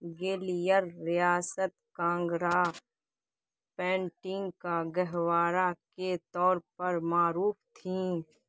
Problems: constant background noise